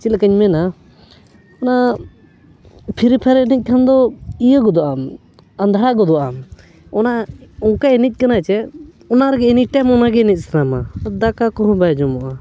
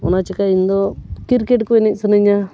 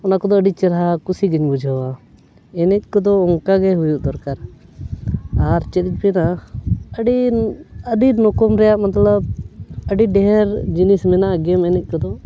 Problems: background sounds at intervals